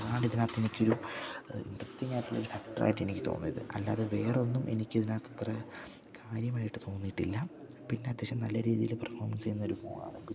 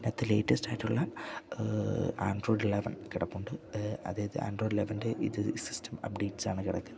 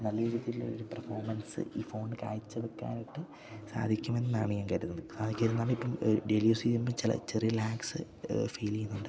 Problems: low volume